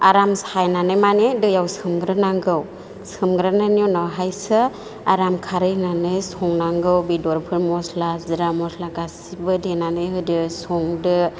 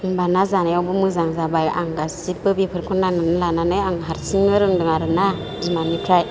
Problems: none marked